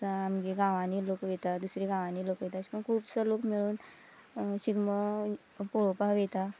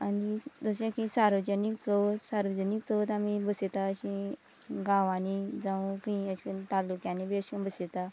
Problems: background conversations at intervals